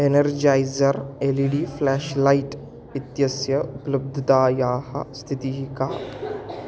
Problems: background sounds at intervals